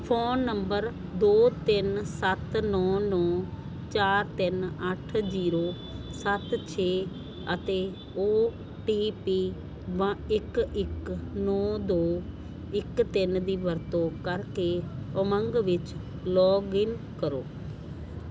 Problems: constant background noise